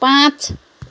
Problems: none marked